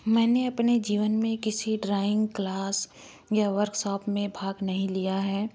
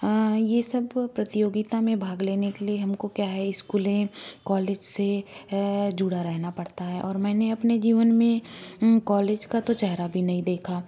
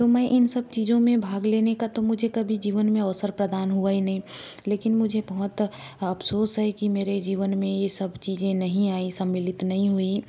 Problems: background sounds at intervals